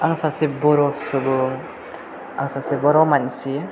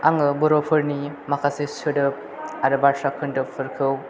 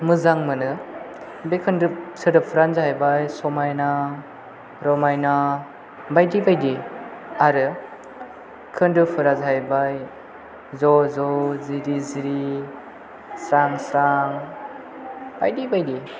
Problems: none marked